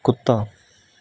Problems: none marked